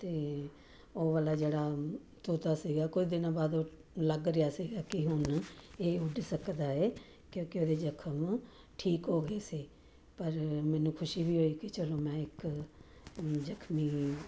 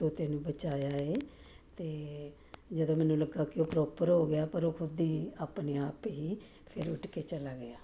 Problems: none marked